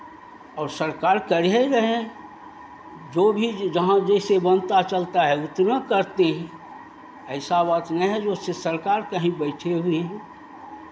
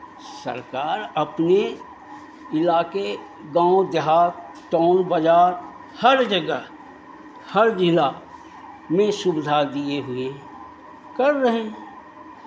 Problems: none marked